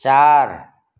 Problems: none marked